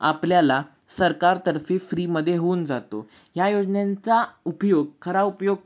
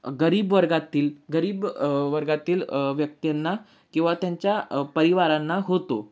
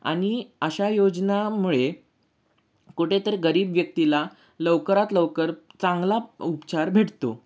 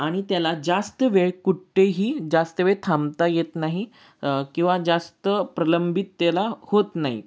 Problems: none marked